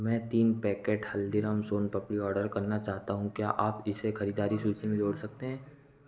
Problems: constant background noise